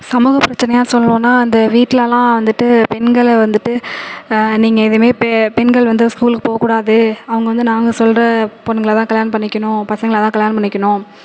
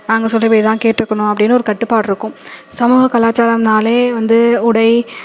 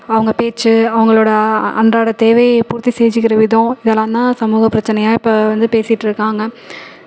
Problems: none marked